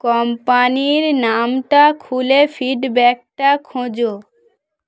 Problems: constant background noise